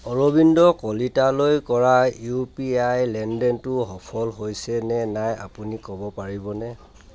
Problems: constant background noise, background conversations at intervals